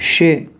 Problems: none marked